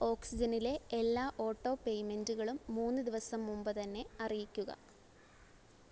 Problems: none marked